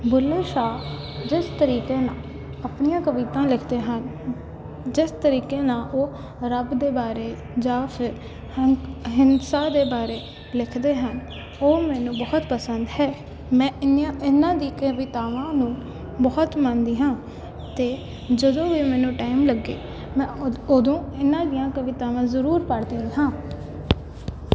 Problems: constant background noise